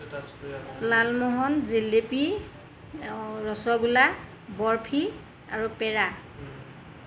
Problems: background sounds at intervals